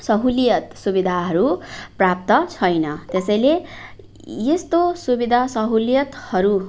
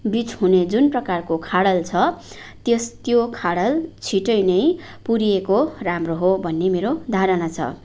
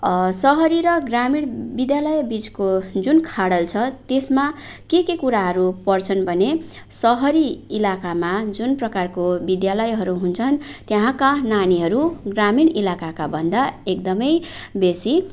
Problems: background sounds at intervals